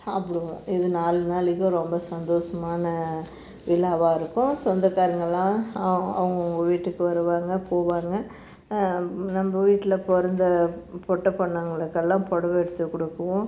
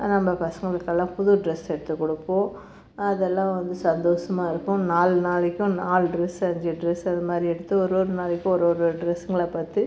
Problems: background sounds at intervals